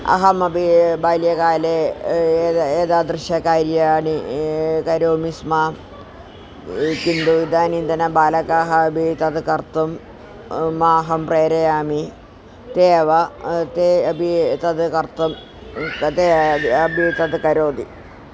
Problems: constant background noise